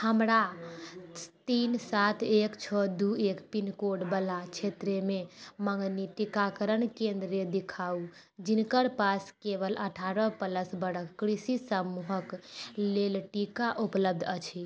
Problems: none marked